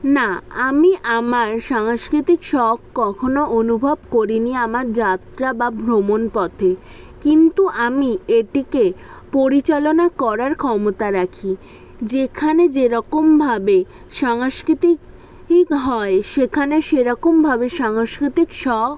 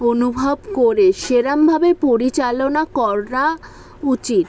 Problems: background sounds at intervals